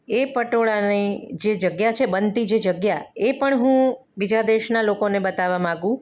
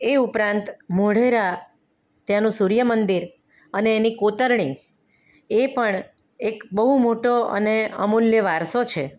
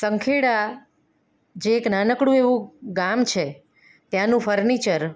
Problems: none marked